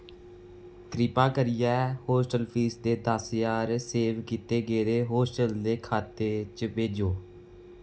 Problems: background sounds at intervals, echo